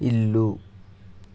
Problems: constant background noise